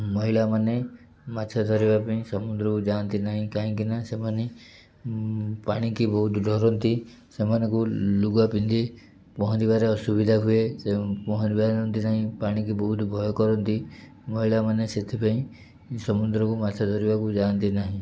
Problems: none marked